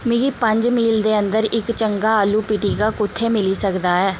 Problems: constant background noise